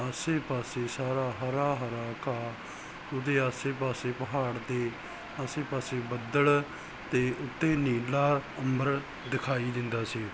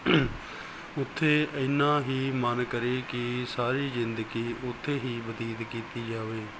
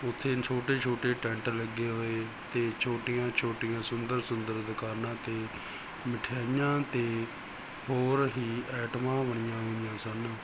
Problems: background sounds at intervals